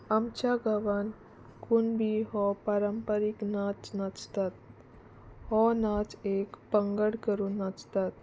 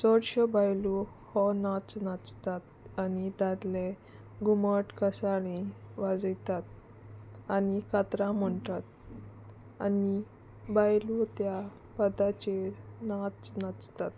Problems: constant background noise